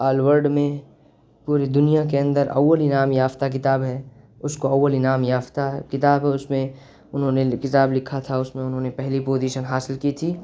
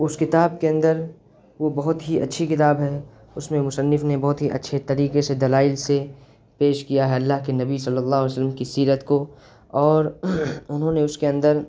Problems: constant background noise